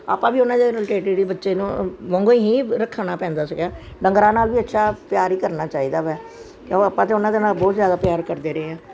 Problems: none marked